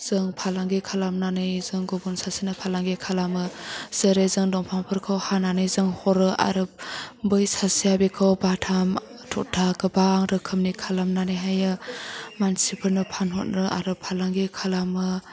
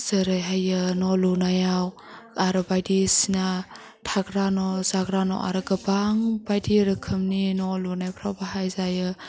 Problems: background sounds at intervals